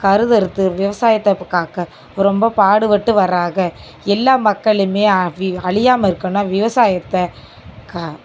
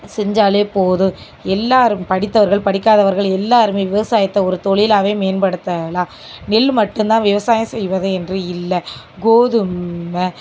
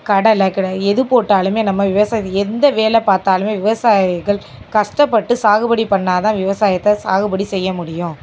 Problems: none marked